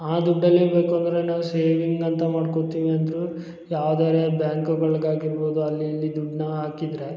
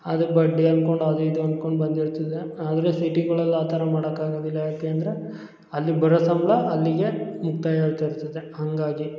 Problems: none marked